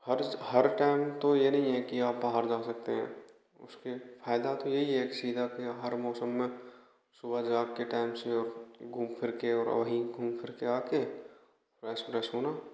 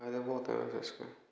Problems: echo